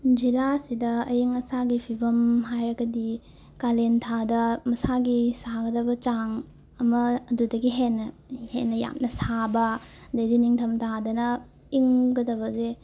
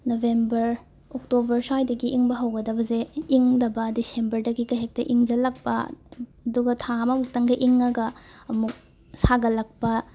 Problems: background sounds at intervals